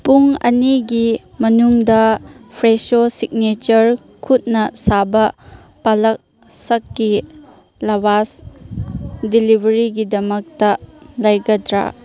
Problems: background sounds at intervals, background conversations at intervals